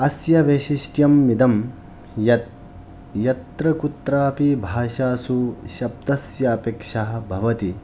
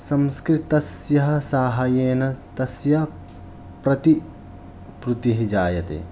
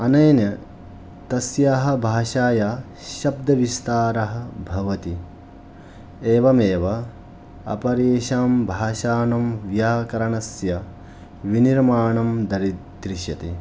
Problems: background sounds at intervals